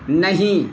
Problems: constant background noise